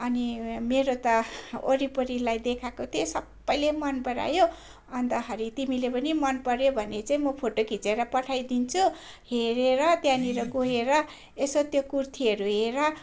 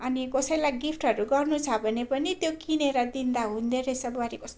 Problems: constant background noise